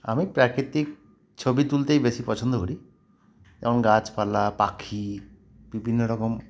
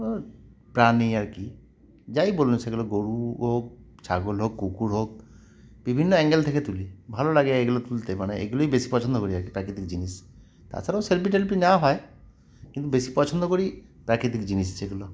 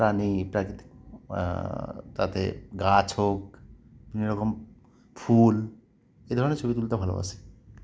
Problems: none marked